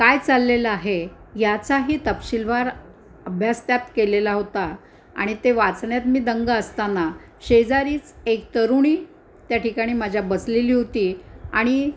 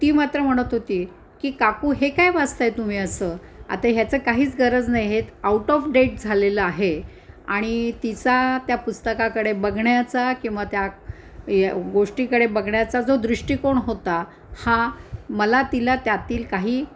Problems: constant background noise, background conversations at intervals